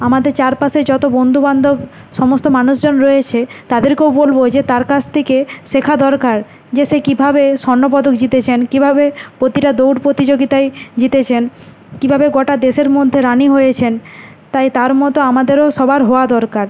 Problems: constant background noise